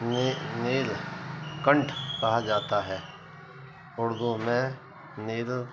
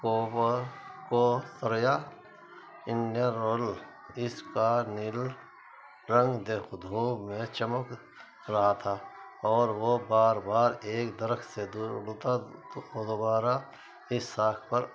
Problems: constant background noise